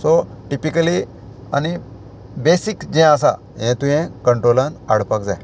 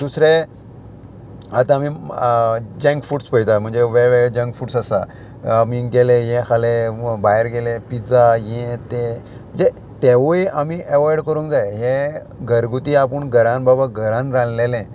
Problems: constant background noise